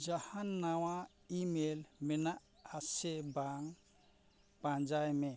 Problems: none marked